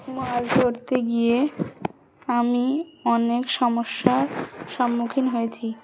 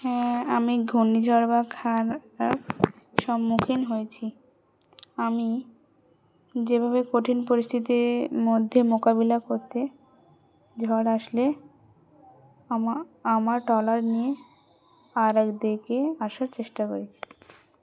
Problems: background conversations at intervals